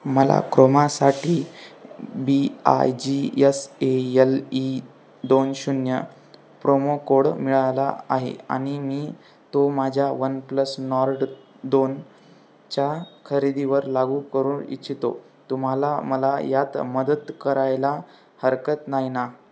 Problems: constant background noise